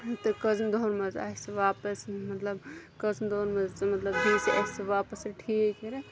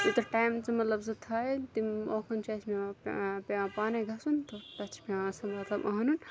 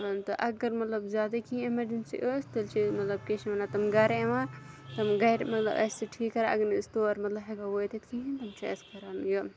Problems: constant background noise, continuous background conversations